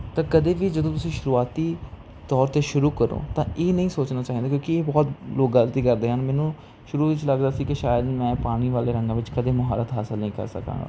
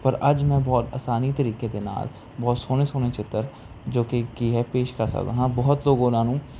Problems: constant background noise